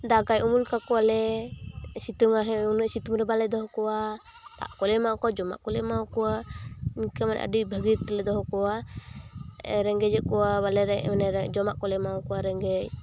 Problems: constant background noise